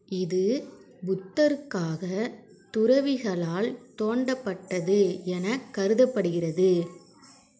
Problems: background sounds at intervals